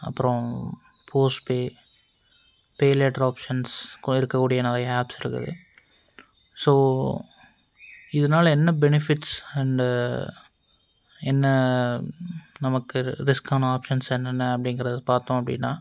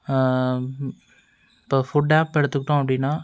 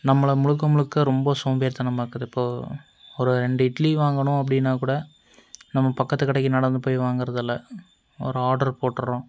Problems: none marked